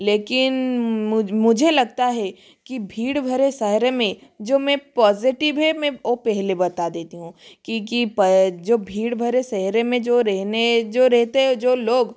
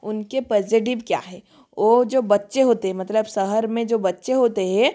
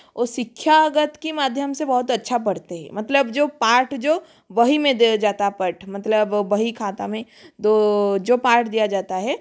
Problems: none marked